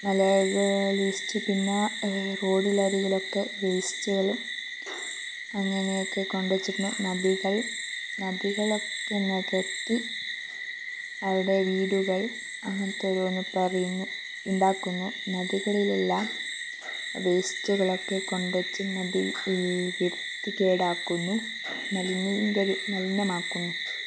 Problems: low volume